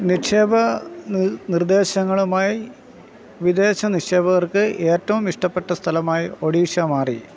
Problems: constant background noise